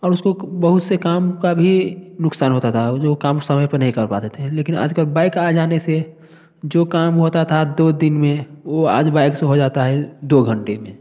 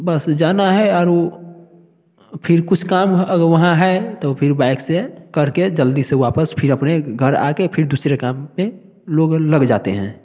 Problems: none marked